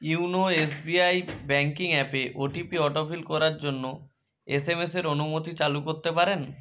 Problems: background sounds at intervals